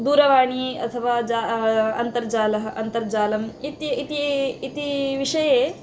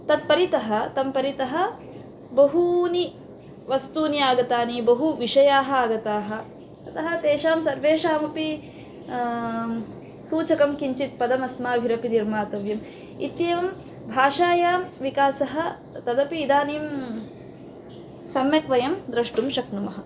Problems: constant background noise